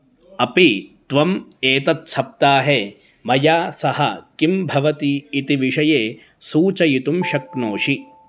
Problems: background conversations at intervals